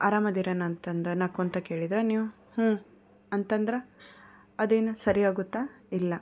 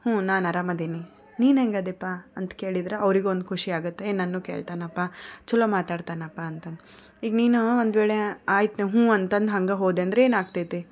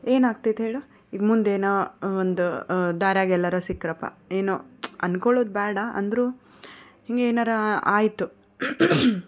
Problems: background conversations at intervals